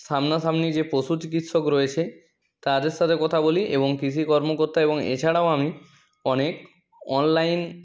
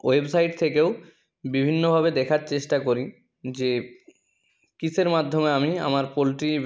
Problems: none marked